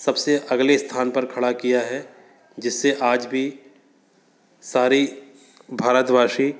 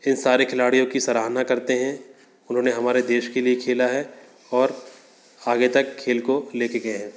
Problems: constant background noise